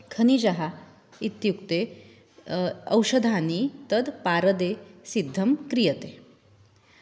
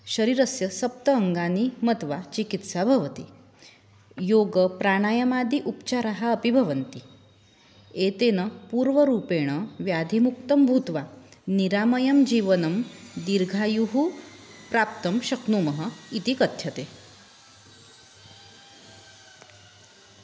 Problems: background sounds at intervals